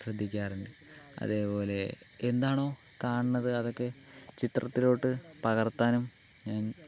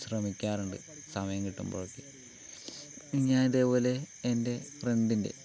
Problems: low volume